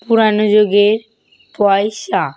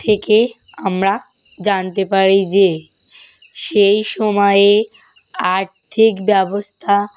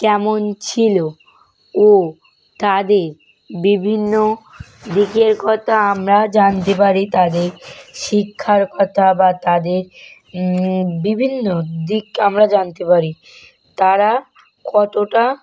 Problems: constant background noise